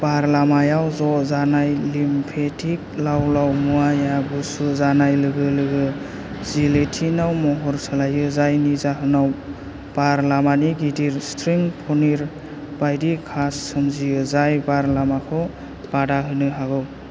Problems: constant background noise